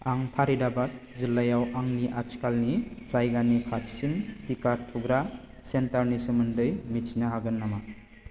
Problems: constant background noise